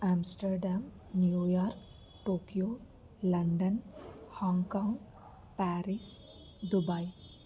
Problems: constant background noise, low volume